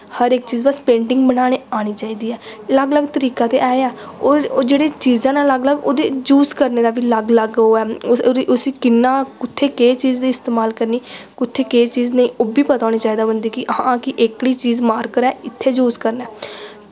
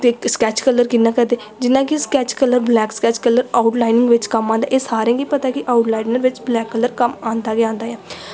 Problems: echo